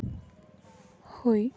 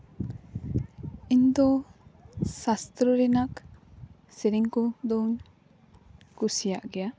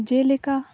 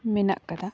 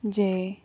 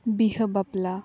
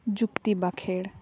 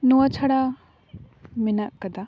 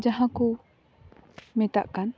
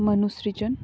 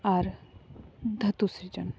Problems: constant background noise, background conversations at intervals